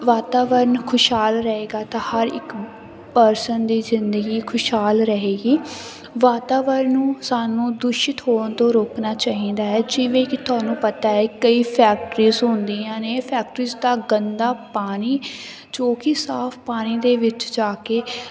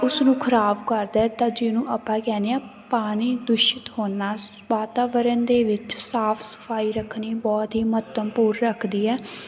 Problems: none marked